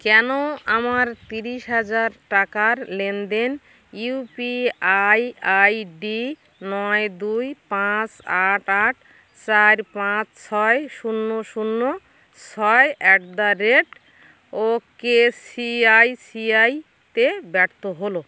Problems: constant background noise